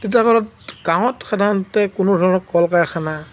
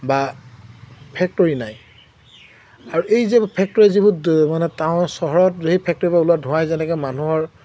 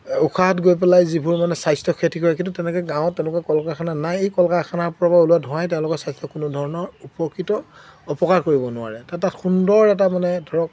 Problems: none marked